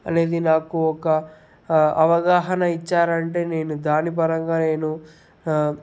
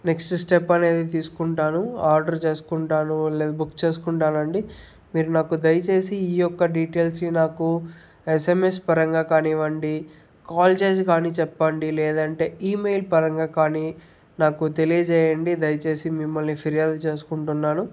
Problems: none marked